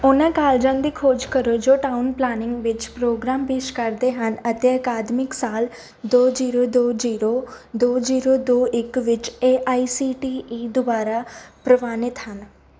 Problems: background sounds at intervals